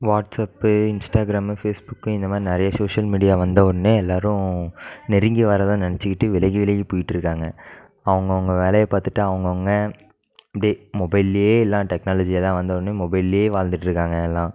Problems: background sounds at intervals